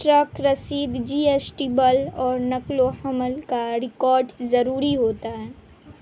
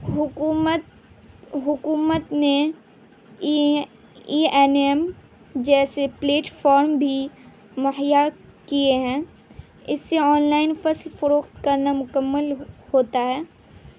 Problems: constant background noise